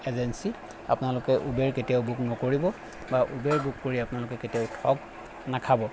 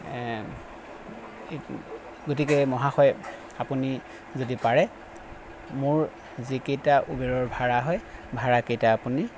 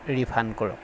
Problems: constant background noise